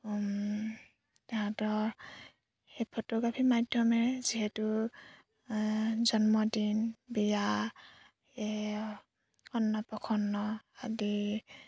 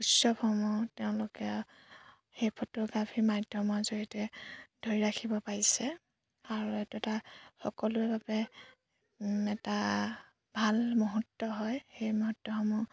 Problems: background sounds at intervals